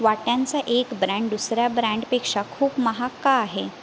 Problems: none marked